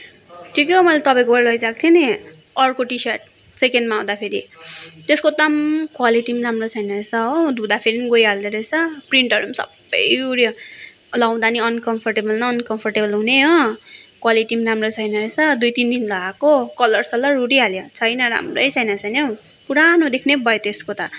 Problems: constant background noise